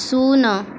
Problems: constant background noise